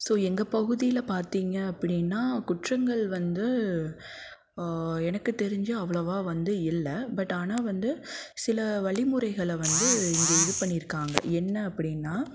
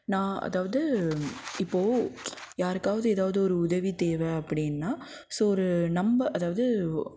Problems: constant background noise